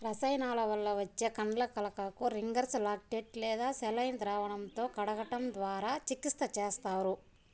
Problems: constant background noise, background conversations at intervals